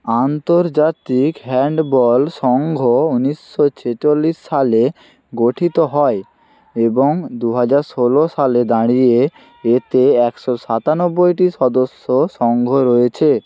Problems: constant background noise